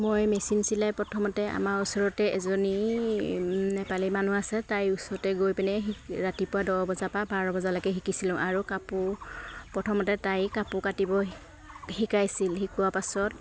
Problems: constant background noise